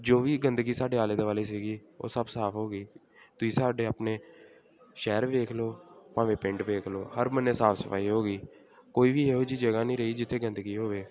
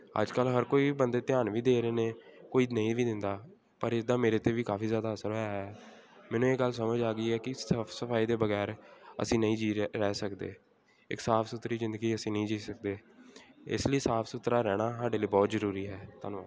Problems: continuous background conversations